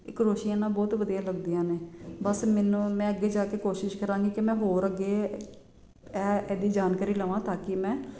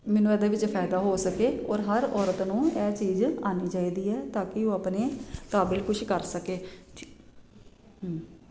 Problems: none marked